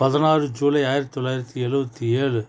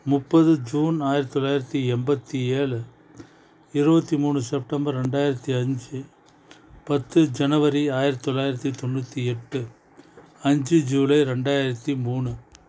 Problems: background conversations at intervals